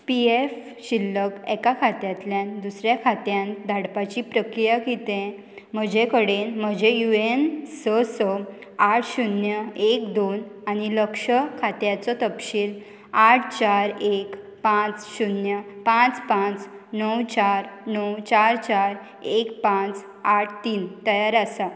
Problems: constant background noise